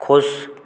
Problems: background sounds at intervals